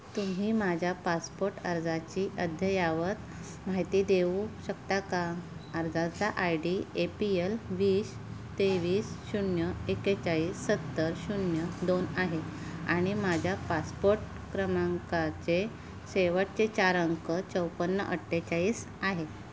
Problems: background sounds at intervals